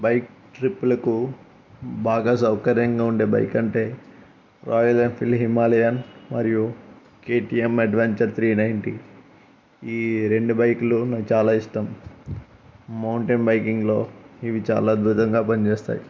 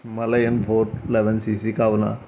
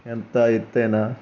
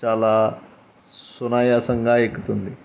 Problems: background sounds at intervals